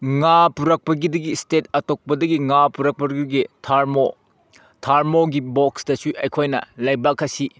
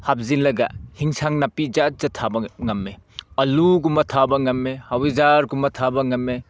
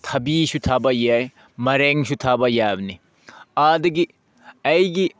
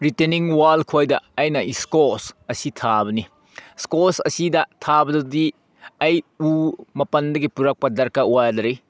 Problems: none marked